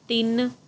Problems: none marked